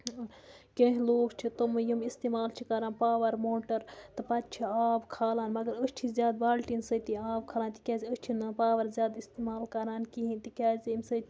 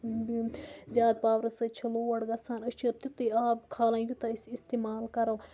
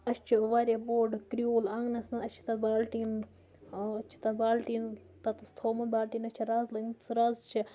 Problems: background sounds at intervals